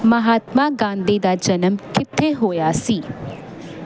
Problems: constant background noise